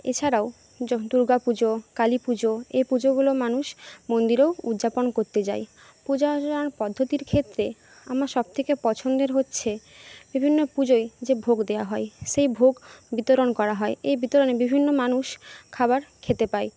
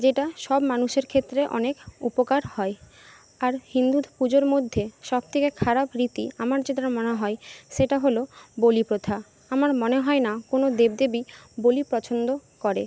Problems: constant background noise